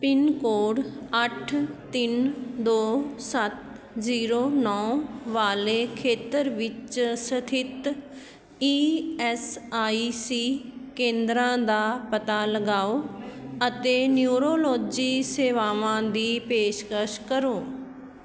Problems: constant background noise, background conversations at intervals